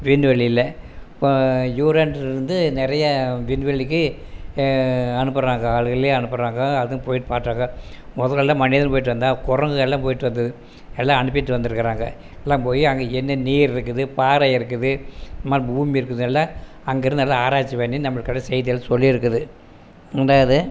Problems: constant background noise